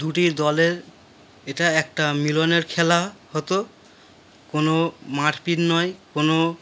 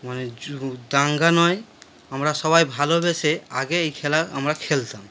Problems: background sounds at intervals